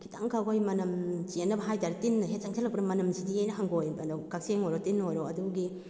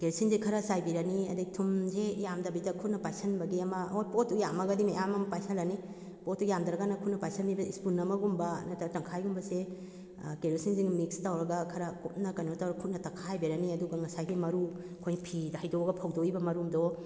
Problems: none marked